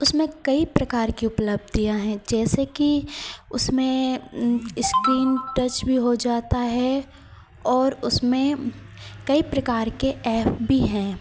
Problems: constant background noise